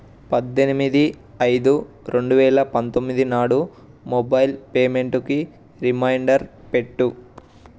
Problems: none marked